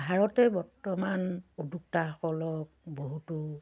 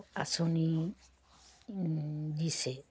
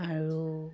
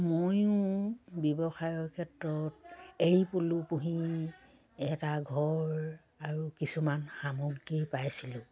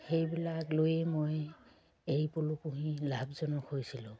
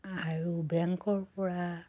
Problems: constant background noise, low volume